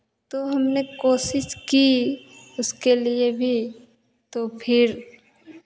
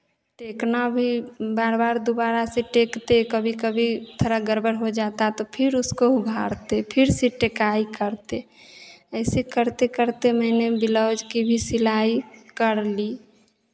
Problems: constant background noise, echo